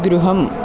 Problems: background sounds at intervals